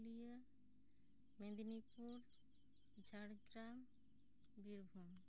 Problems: low volume